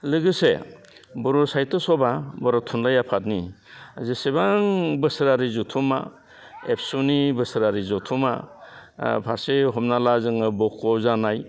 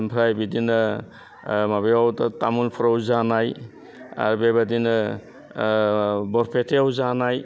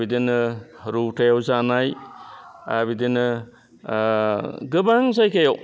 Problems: constant background noise